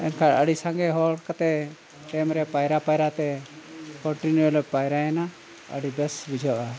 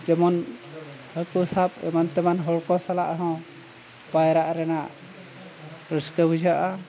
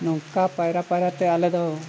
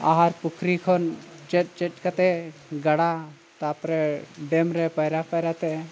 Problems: constant background noise